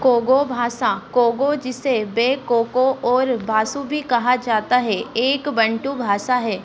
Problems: constant background noise